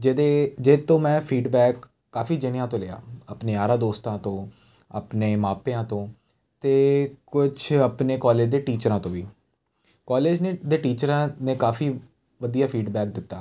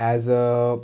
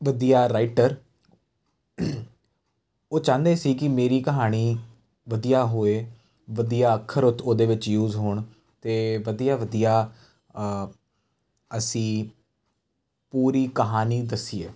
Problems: none marked